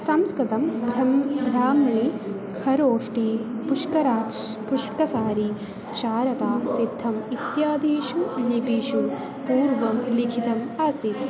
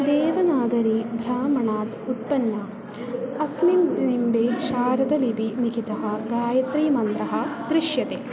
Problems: constant background noise, continuous background conversations